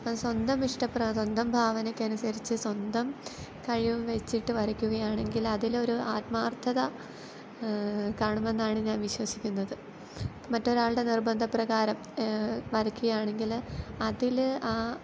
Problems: background sounds at intervals